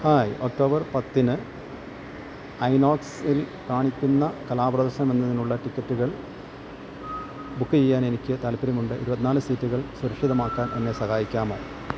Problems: none marked